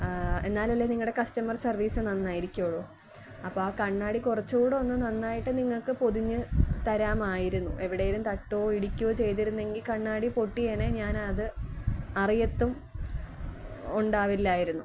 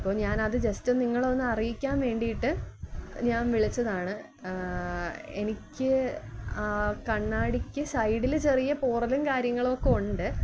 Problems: low volume